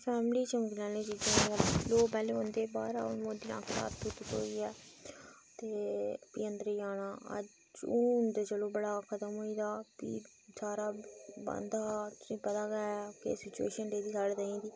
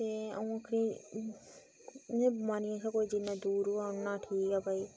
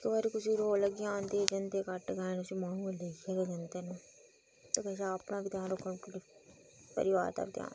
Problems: background sounds at intervals, low volume